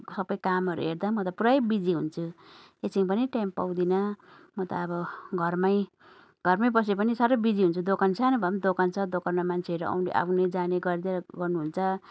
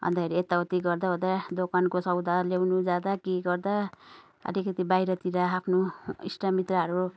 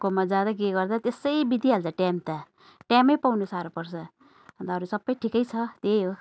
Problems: none marked